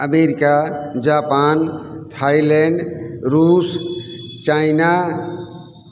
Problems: none marked